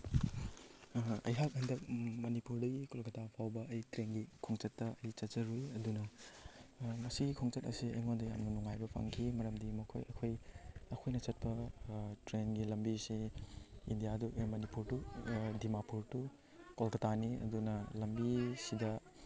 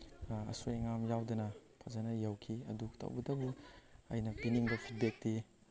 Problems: background sounds at intervals